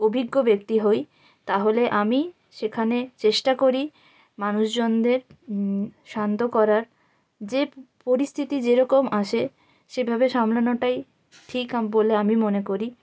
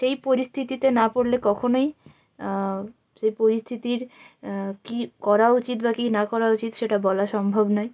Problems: constant background noise